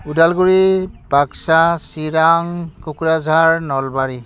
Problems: none marked